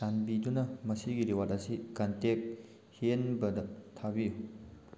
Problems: constant background noise